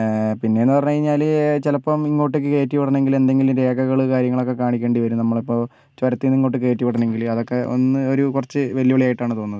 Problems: none marked